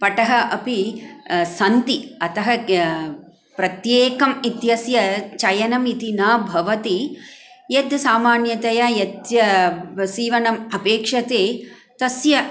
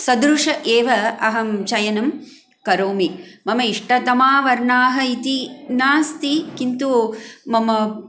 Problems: background sounds at intervals